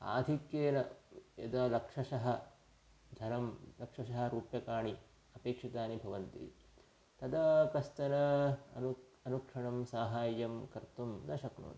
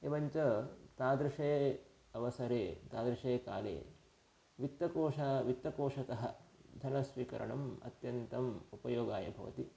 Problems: none marked